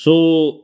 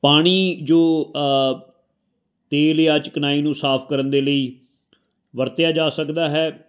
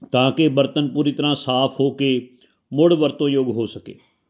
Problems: none marked